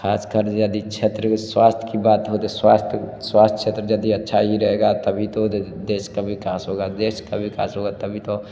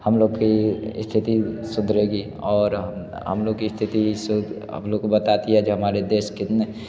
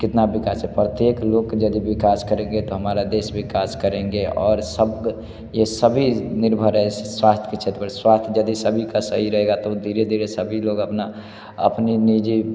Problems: background sounds at intervals